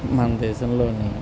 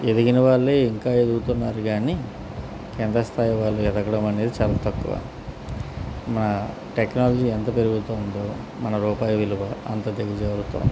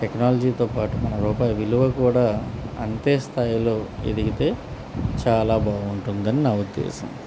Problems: constant background noise